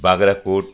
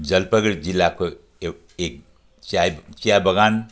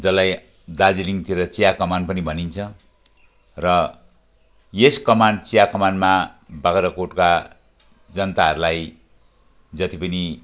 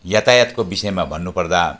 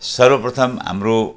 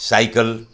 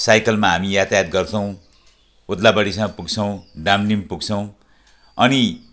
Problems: background sounds at intervals